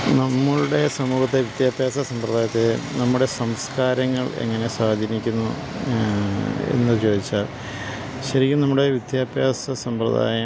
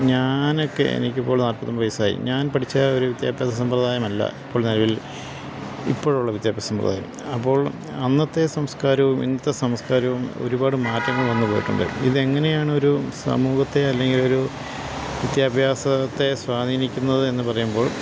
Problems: constant background noise